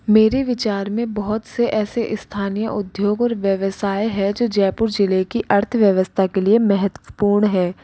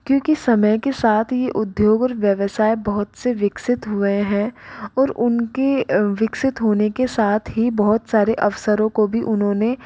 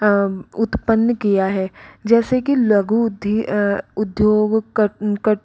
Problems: background sounds at intervals